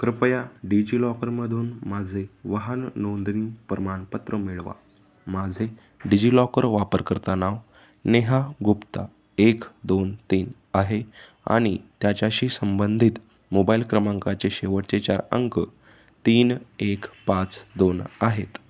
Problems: background sounds at intervals